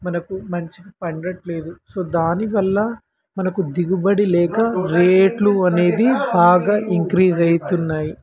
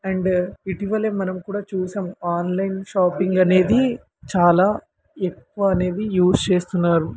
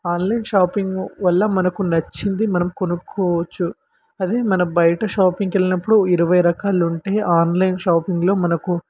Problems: constant background noise